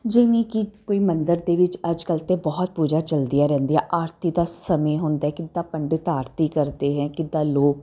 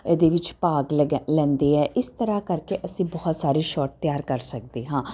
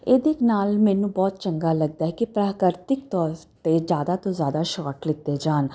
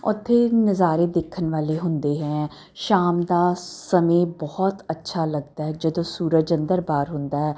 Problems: constant background noise